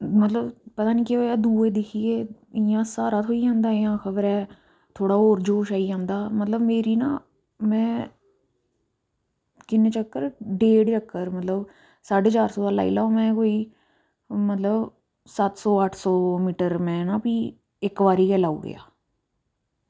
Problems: low volume